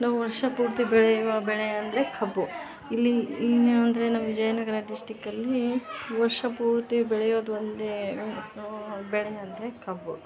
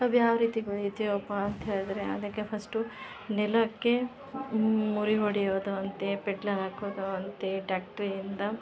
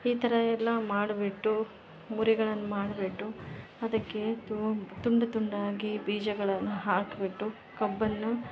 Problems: none marked